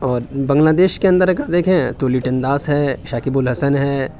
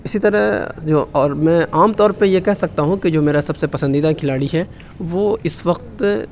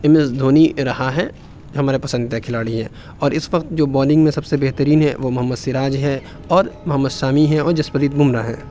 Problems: none marked